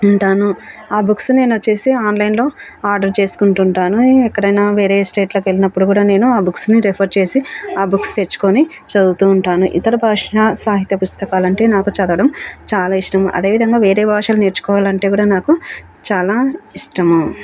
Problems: background sounds at intervals